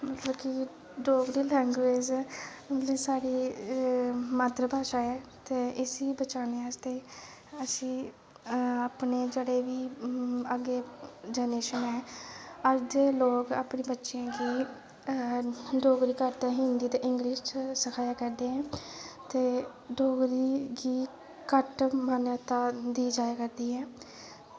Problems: constant background noise, low volume